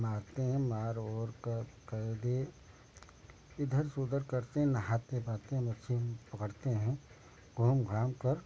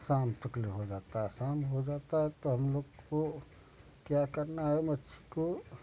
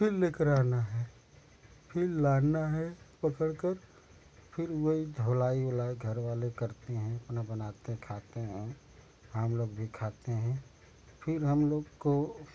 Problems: none marked